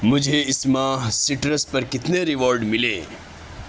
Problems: constant background noise